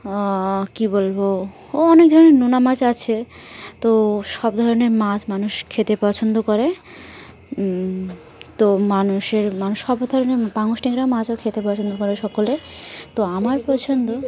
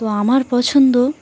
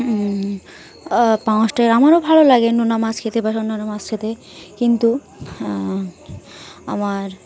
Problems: none marked